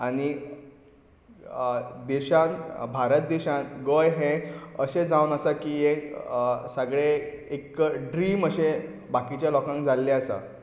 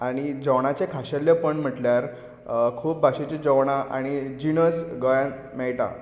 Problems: background sounds at intervals